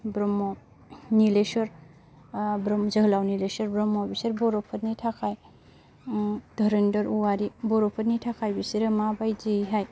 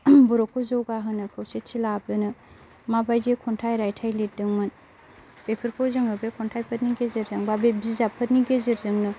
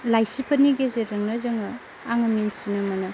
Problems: constant background noise